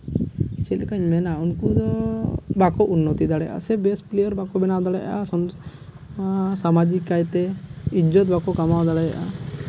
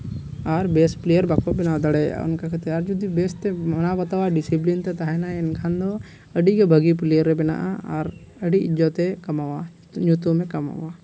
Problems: constant background noise